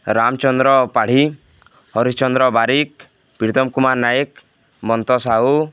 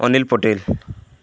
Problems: none marked